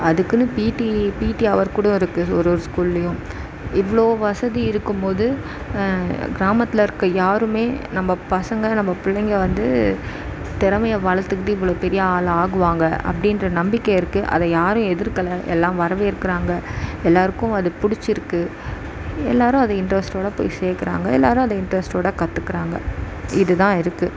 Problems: background sounds at intervals